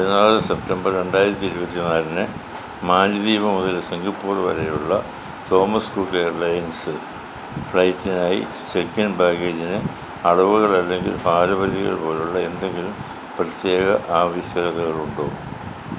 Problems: none marked